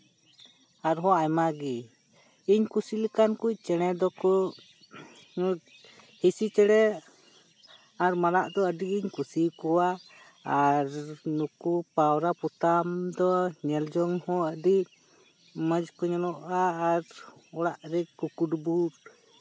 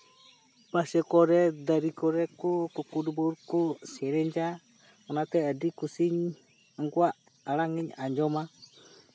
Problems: constant background noise